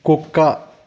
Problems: constant background noise